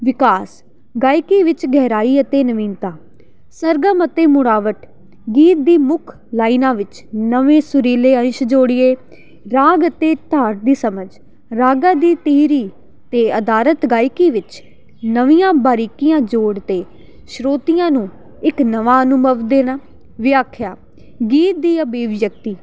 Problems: none marked